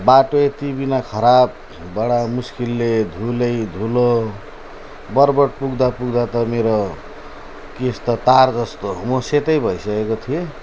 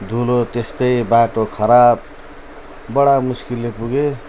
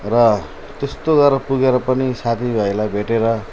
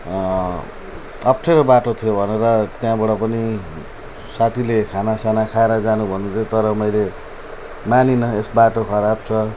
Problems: none marked